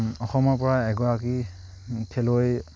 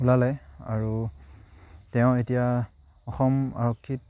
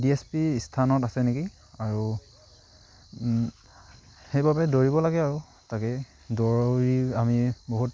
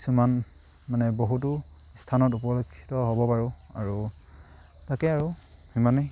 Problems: none marked